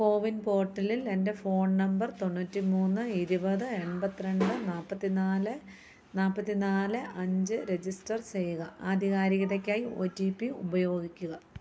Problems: none marked